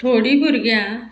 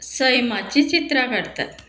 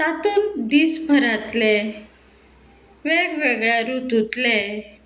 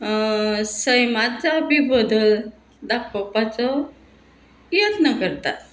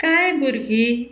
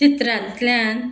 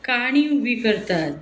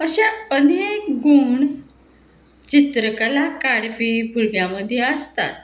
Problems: constant background noise